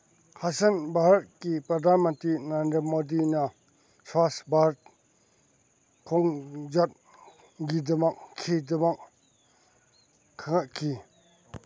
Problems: background sounds at intervals